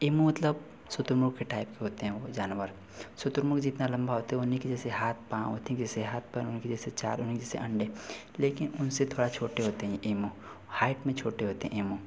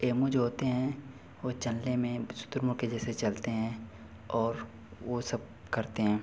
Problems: none marked